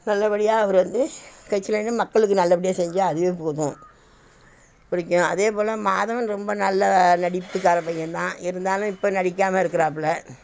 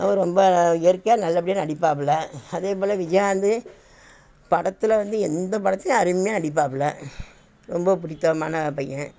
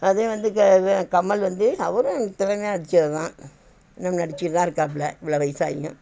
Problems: constant background noise